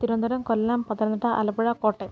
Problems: constant background noise, low volume